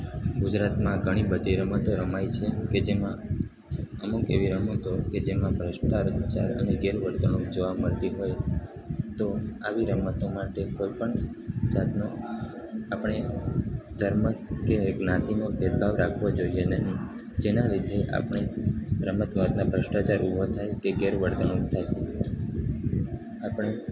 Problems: constant background noise